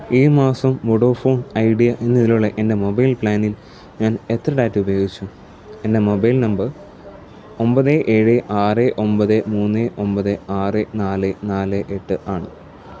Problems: low volume